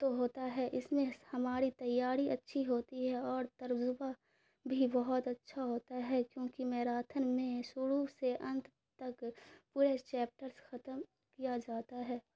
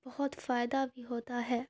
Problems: none marked